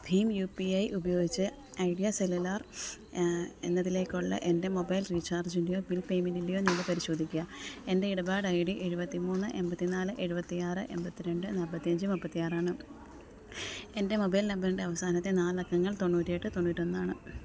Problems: background sounds at intervals, low volume